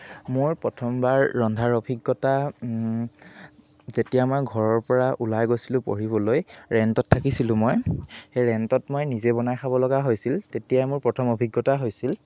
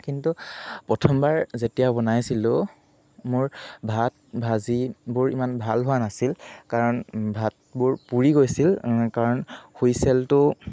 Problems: none marked